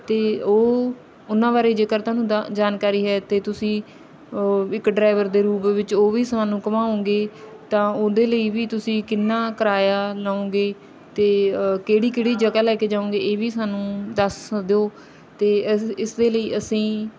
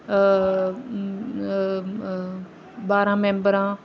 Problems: background sounds at intervals, background conversations at intervals